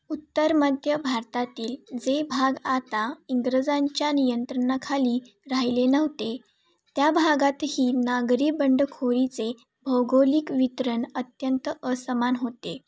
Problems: background sounds at intervals